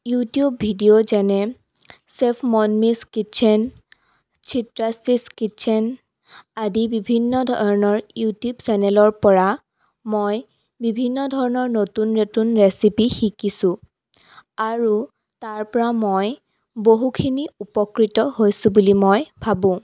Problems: none marked